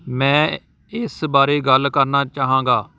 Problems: none marked